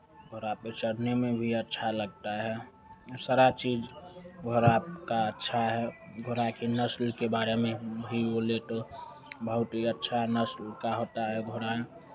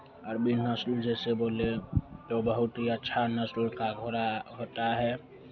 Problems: none marked